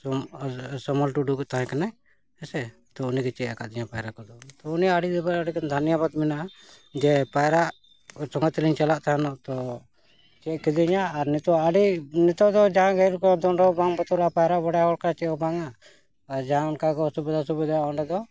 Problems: none marked